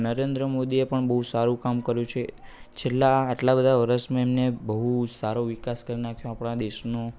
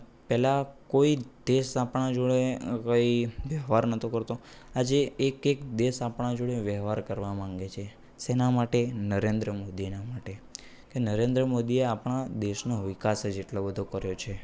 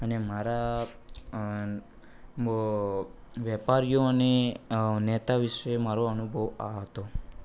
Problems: background conversations at intervals